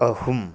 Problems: low volume